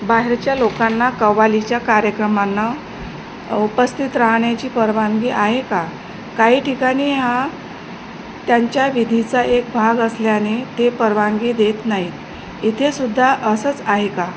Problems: none marked